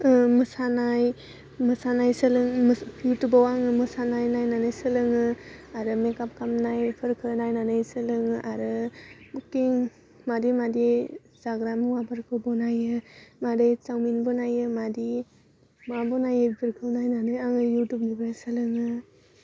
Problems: constant background noise